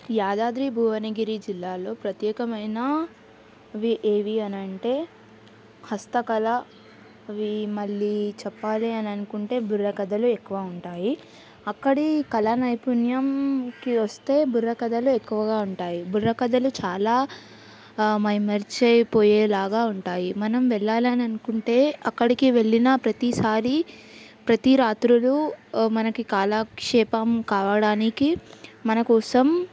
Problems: background sounds at intervals